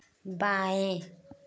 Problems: none marked